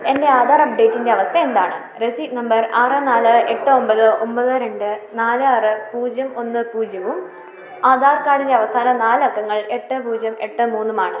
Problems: background sounds at intervals